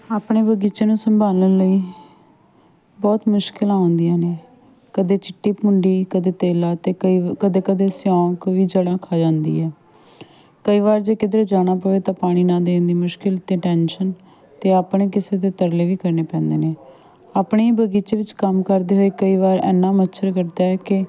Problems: background sounds at intervals, continuous background conversations